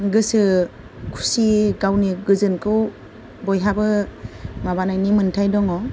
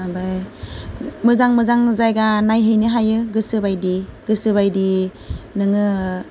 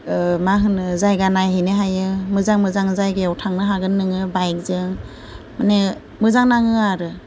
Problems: none marked